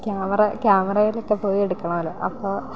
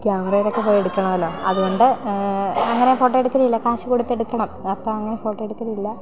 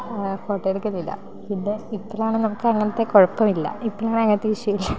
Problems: background conversations at intervals